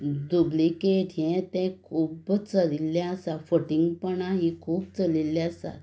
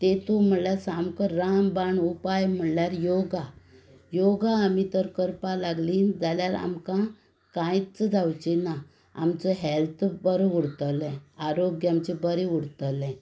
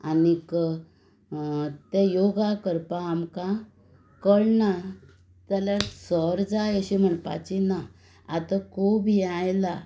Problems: background sounds at intervals